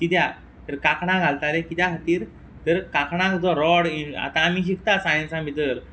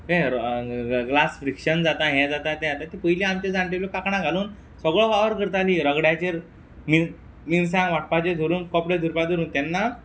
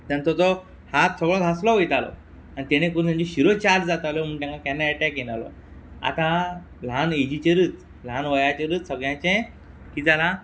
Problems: background sounds at intervals